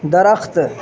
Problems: constant background noise